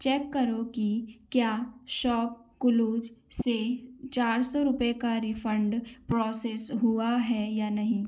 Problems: background sounds at intervals